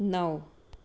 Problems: none marked